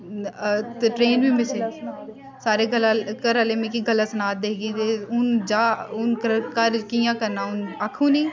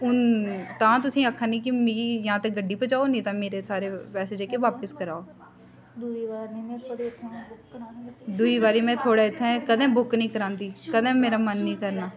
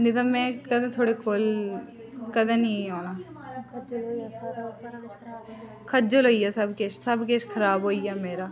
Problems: constant background noise